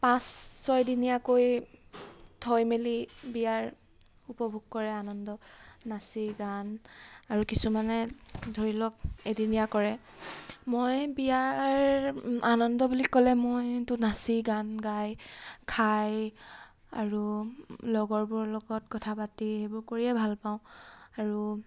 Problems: background sounds at intervals